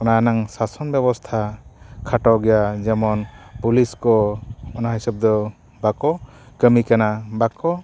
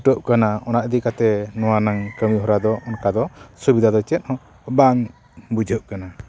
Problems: constant background noise